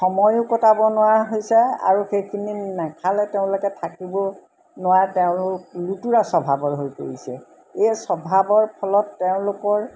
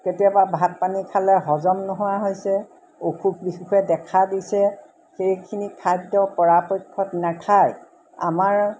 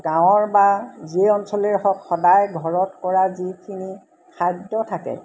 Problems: constant background noise